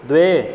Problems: constant background noise